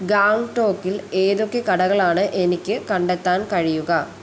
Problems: constant background noise